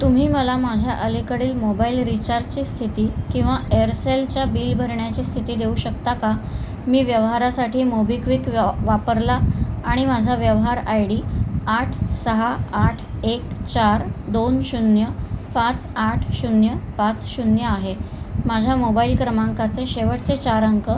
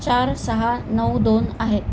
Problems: none marked